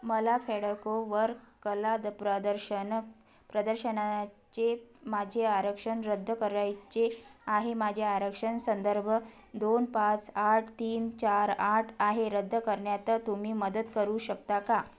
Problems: background conversations at intervals